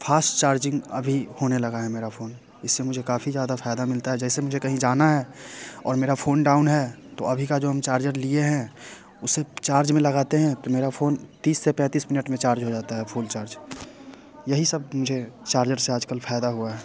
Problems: none marked